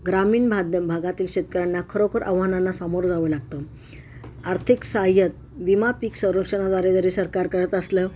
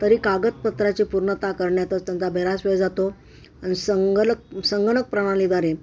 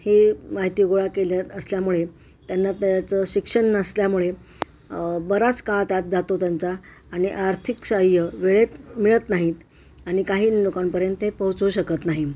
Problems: constant background noise, background conversations at intervals